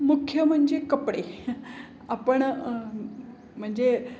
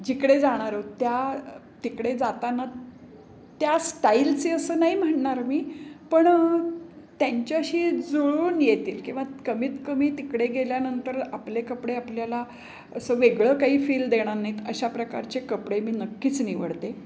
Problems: background sounds at intervals